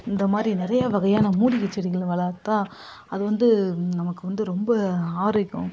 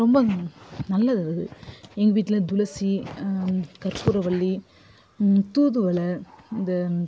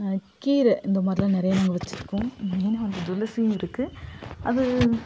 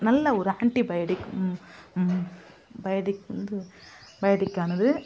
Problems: background conversations at intervals